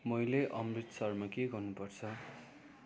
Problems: none marked